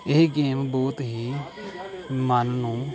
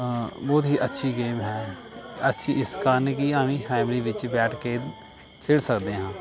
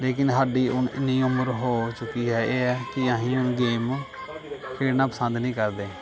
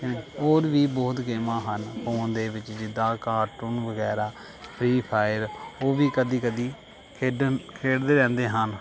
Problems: none marked